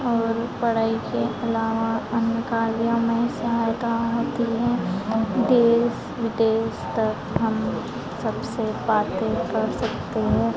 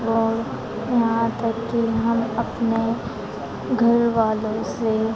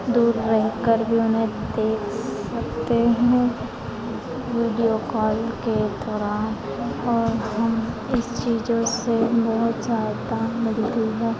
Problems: constant background noise, background conversations at intervals